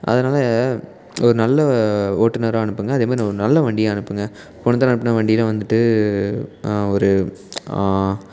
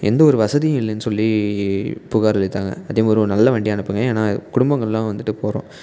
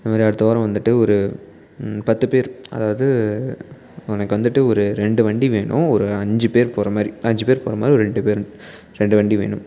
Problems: background conversations at intervals